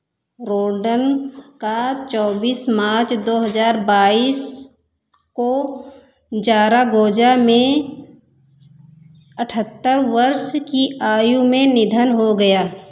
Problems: echo